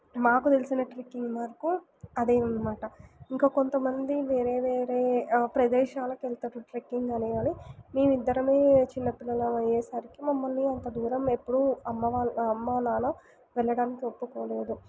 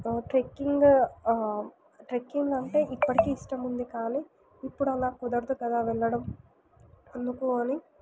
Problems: background sounds at intervals